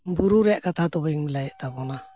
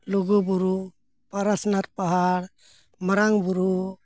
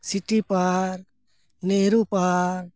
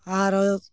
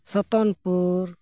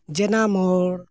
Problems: none marked